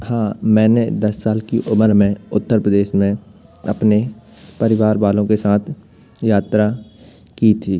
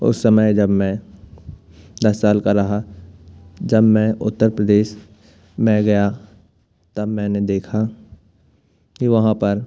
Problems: constant background noise